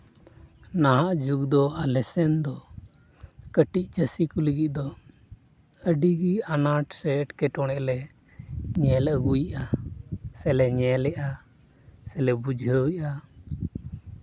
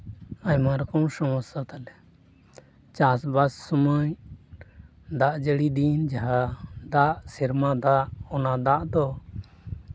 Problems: constant background noise